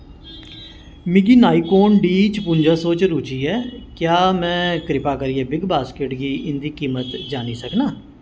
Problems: echo